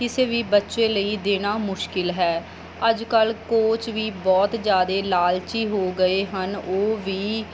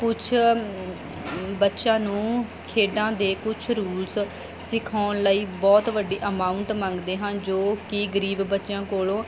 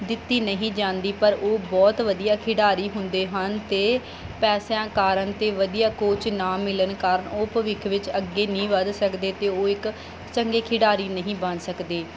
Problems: background sounds at intervals